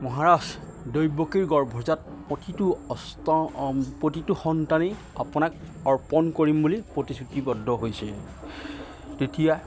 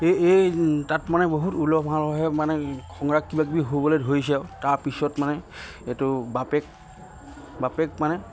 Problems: constant background noise